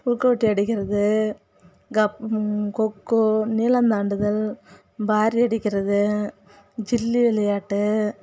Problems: none marked